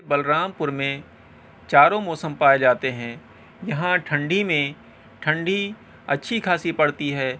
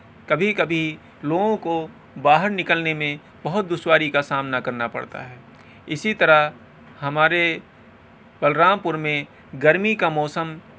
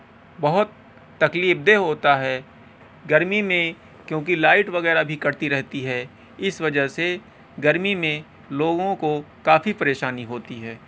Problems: constant background noise